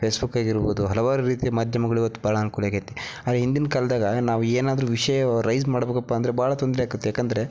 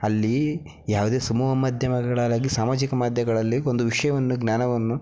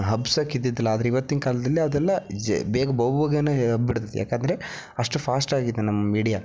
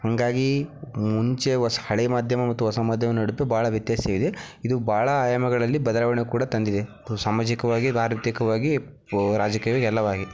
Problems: background sounds at intervals